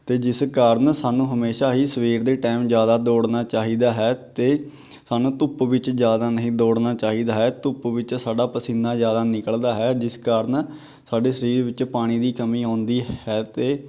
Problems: none marked